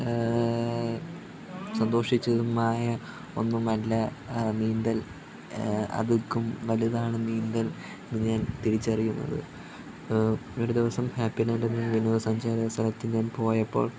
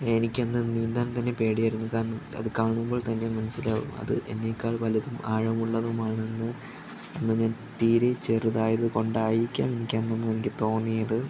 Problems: constant background noise, low volume